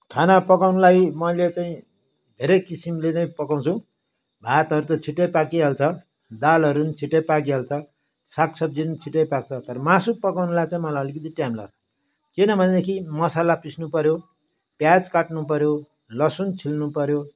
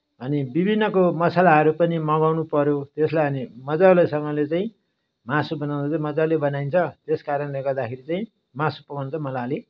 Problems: background sounds at intervals